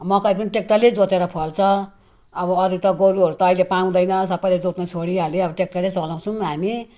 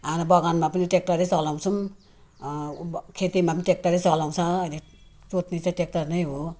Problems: none marked